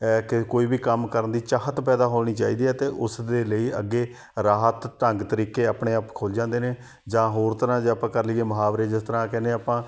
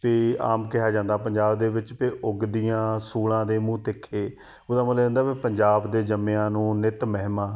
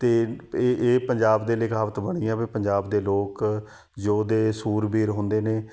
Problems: background sounds at intervals